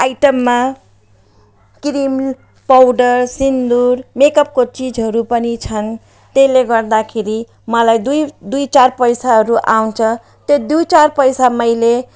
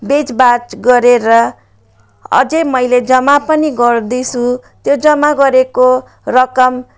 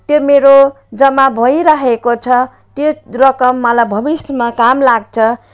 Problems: none marked